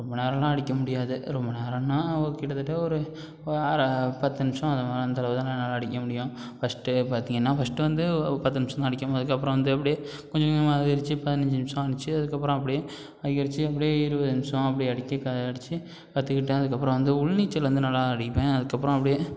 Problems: none marked